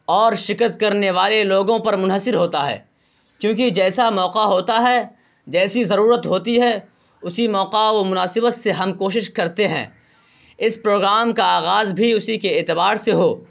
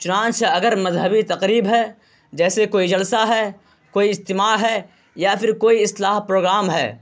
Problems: constant background noise